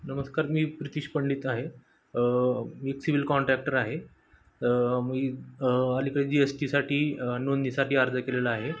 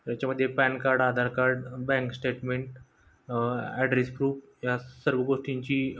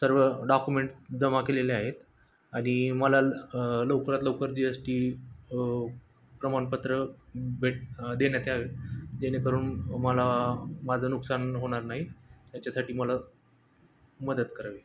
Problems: background sounds at intervals